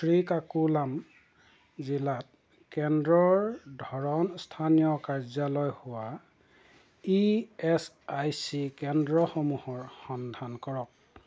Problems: none marked